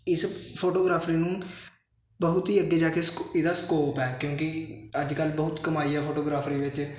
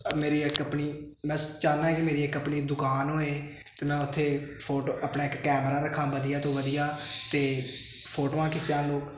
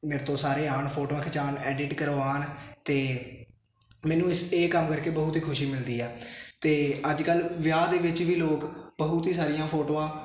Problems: constant background noise